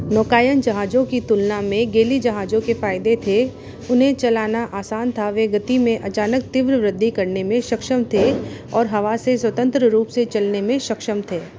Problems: constant background noise